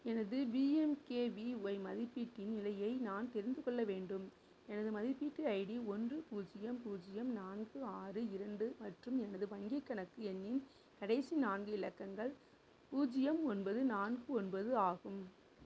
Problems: background sounds at intervals, low volume